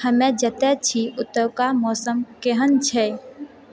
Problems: none marked